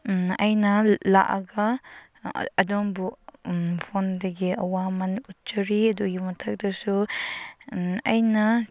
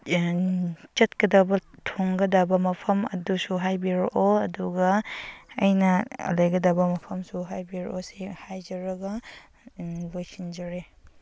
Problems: background sounds at intervals